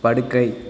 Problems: none marked